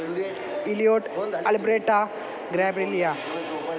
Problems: constant background noise, background conversations at intervals